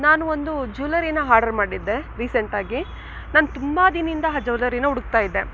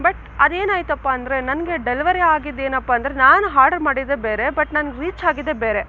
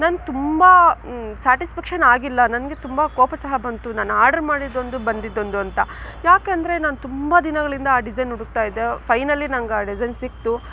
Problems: background sounds at intervals